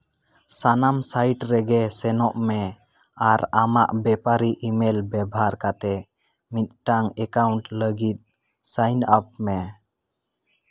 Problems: none marked